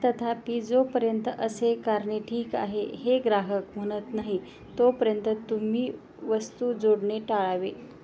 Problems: background sounds at intervals